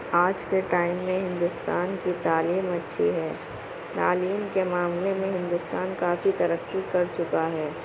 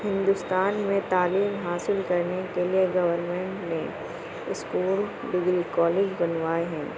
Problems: constant background noise, low volume